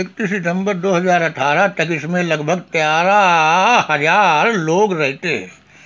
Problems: none marked